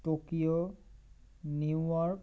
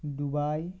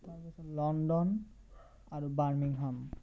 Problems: constant background noise